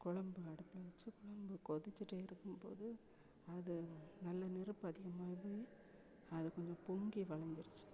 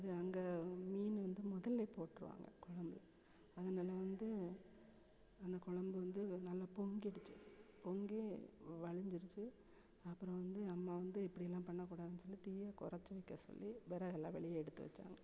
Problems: background sounds at intervals